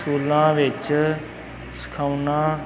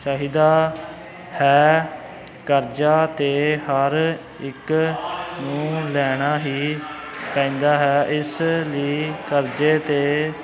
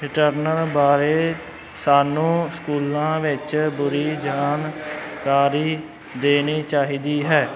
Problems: none marked